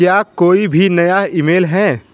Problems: constant background noise